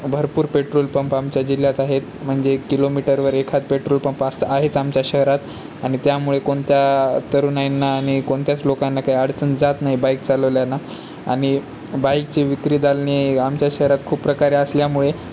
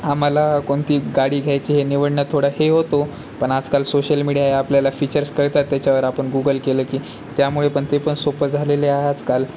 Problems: none marked